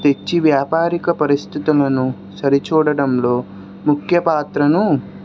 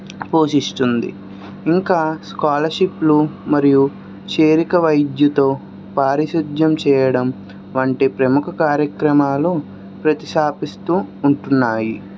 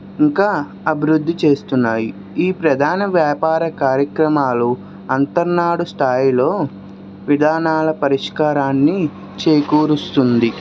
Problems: constant background noise